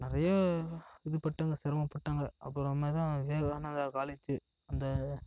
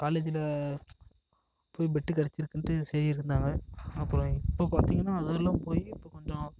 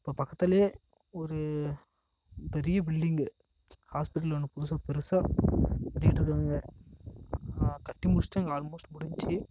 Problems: echo